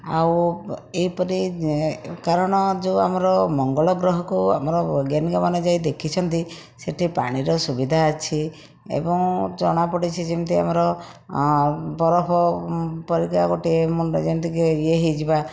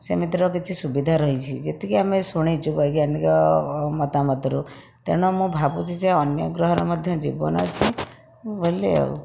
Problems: background sounds at intervals